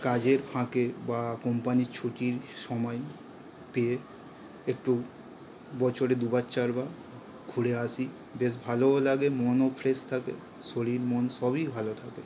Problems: none marked